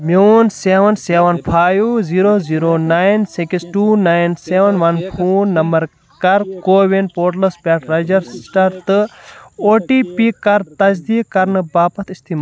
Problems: none marked